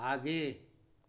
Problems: constant background noise